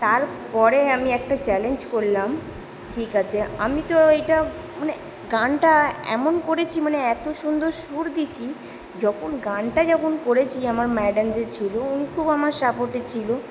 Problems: none marked